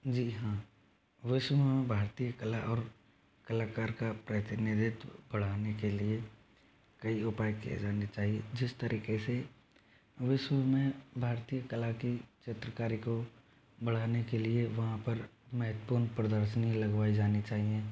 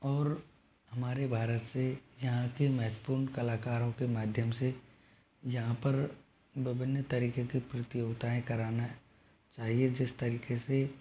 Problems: low volume